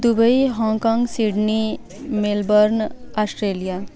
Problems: constant background noise, continuous background conversations